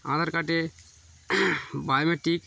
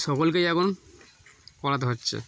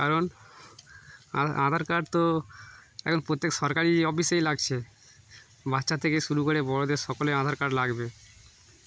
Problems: constant background noise